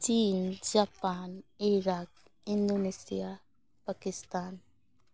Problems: background sounds at intervals